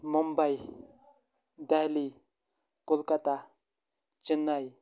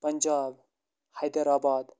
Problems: none marked